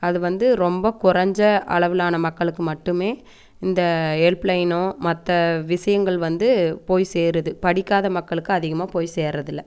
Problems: none marked